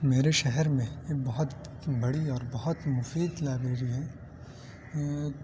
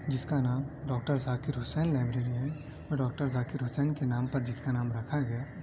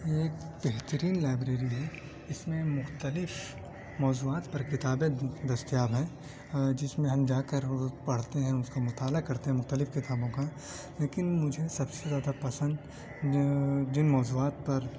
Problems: constant background noise, continuous background conversations